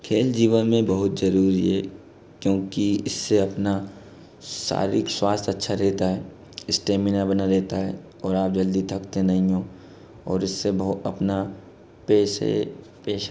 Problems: constant background noise